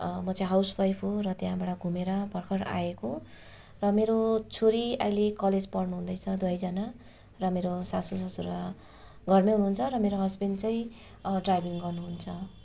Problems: constant background noise